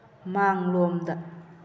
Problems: constant background noise